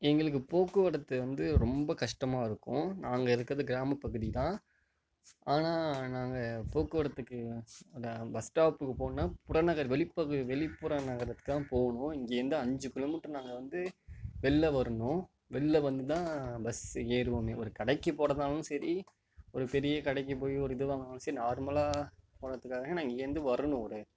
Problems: none marked